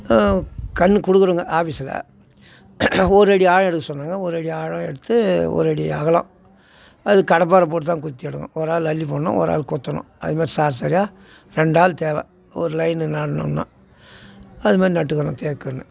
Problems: constant background noise